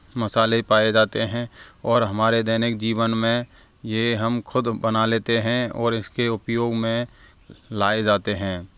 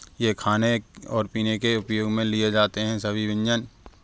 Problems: constant background noise, background conversations at intervals